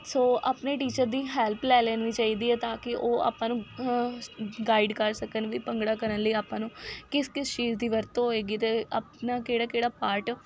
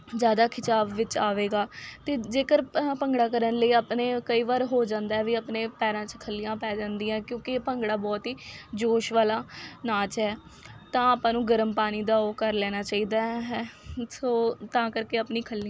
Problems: background sounds at intervals